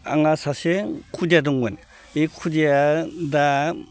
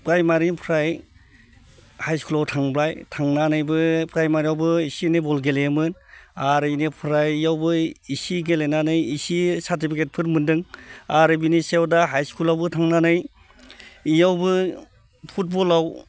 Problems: constant background noise